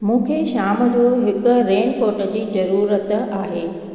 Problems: constant background noise, echo